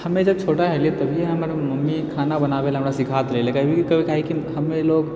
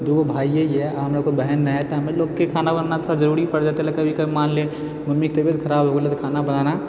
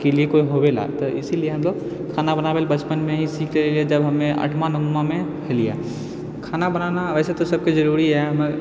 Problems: none marked